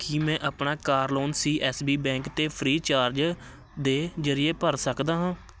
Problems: constant background noise